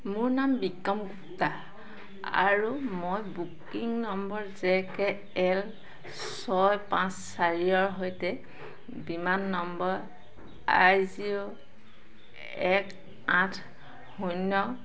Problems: constant background noise, background conversations at intervals